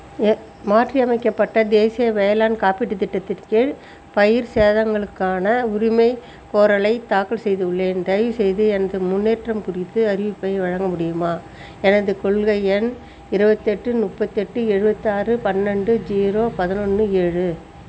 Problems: constant background noise